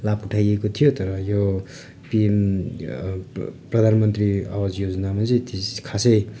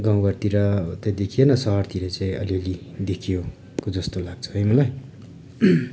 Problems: none marked